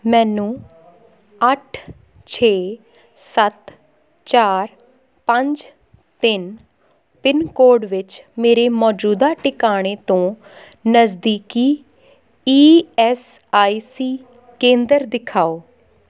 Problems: background conversations at intervals